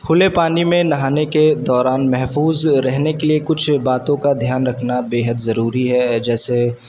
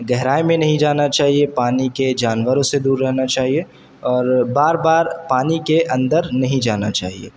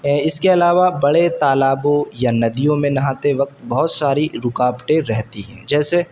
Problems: constant background noise